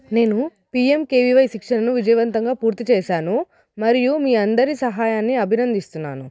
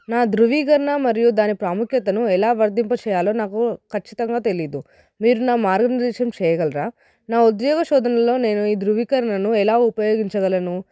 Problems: none marked